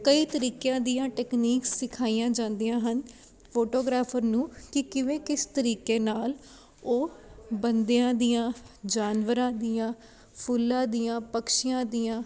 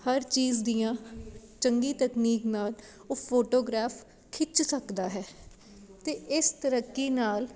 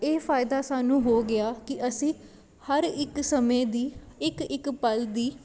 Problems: constant background noise